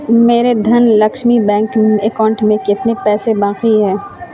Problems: constant background noise